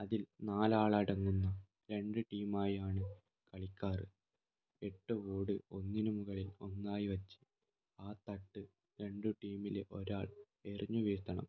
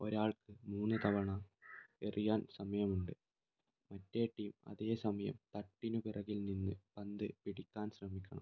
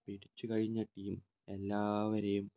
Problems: low volume